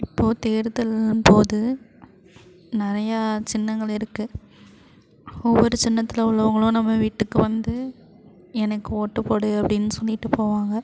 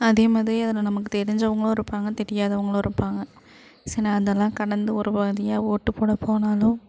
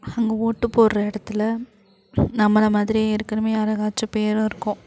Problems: constant background noise